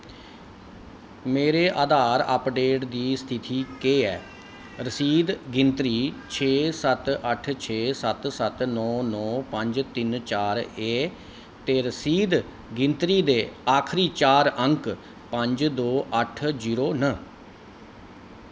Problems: background sounds at intervals